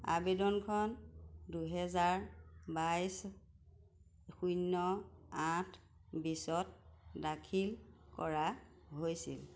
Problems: none marked